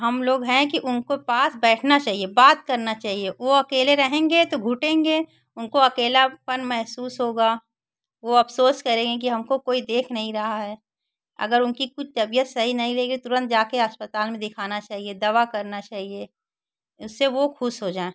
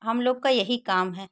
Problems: none marked